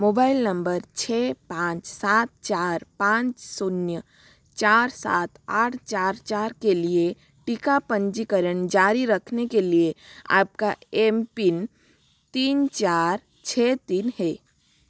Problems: constant background noise